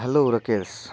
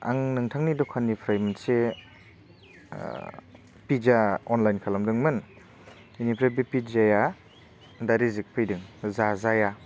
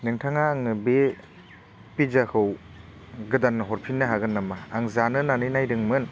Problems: none marked